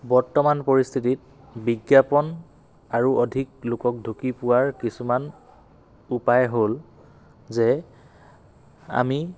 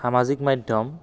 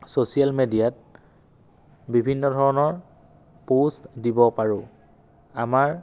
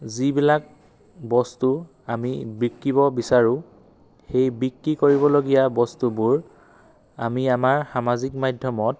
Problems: none marked